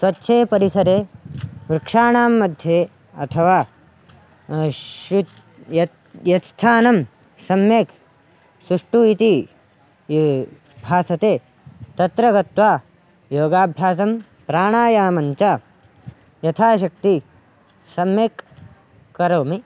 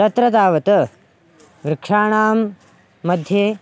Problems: none marked